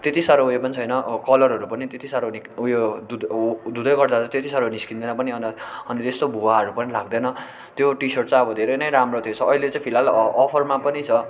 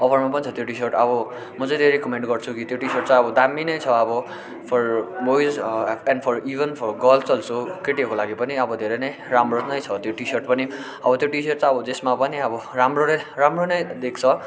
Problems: background sounds at intervals